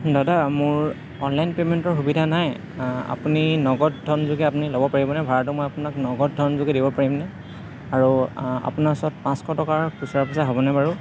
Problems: background sounds at intervals, continuous background conversations